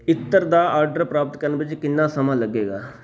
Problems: background conversations at intervals